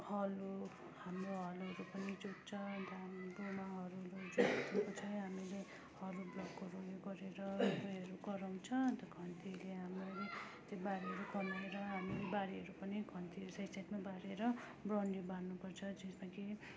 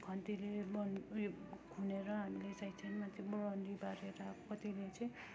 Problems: constant background noise, continuous background conversations